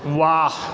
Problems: background sounds at intervals